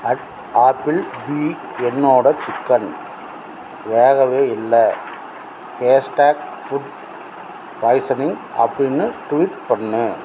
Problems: constant background noise